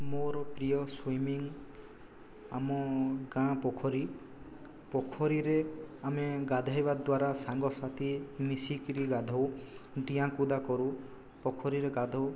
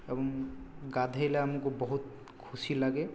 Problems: low volume